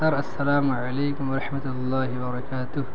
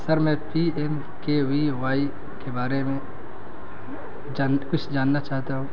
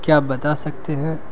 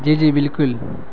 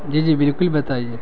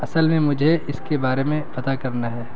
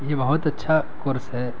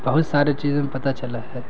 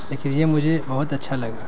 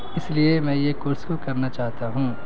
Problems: constant background noise